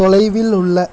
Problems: constant background noise, continuous background conversations